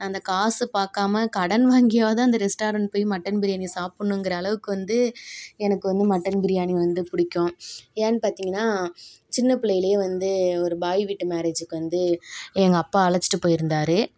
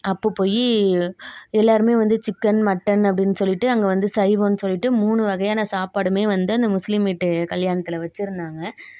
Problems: background sounds at intervals